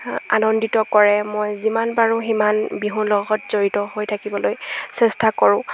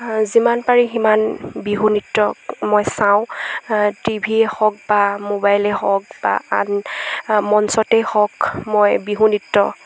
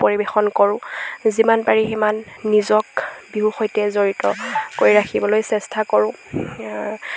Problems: background sounds at intervals